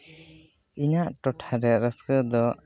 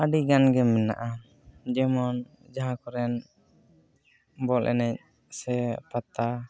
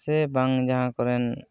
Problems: none marked